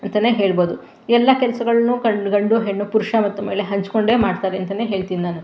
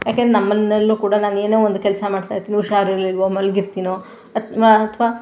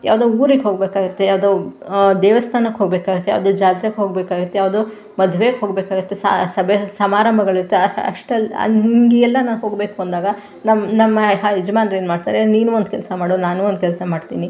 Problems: background sounds at intervals